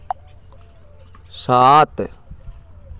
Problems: constant background noise, continuous background conversations